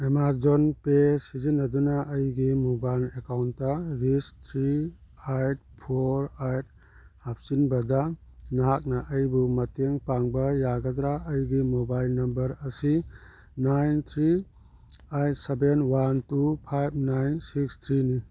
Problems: none marked